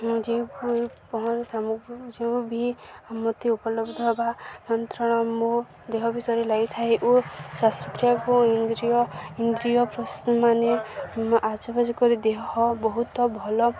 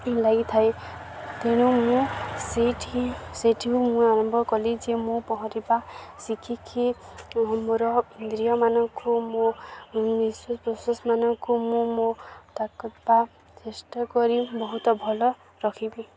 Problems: constant background noise, continuous background conversations